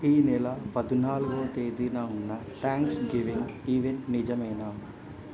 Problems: low volume